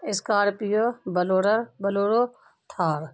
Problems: constant background noise